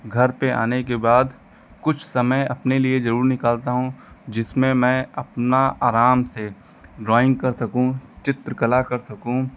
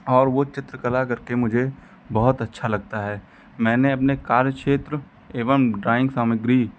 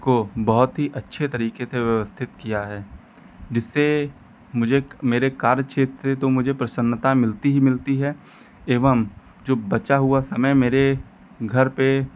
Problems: background sounds at intervals